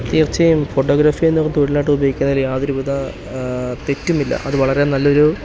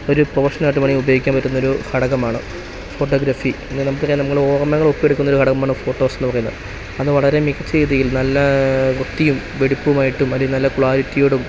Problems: constant background noise